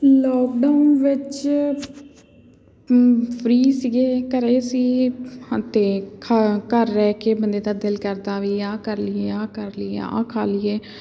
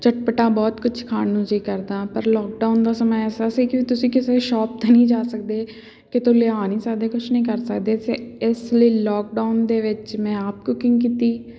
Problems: none marked